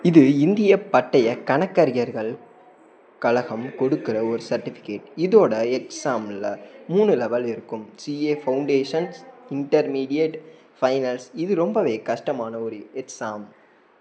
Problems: background sounds at intervals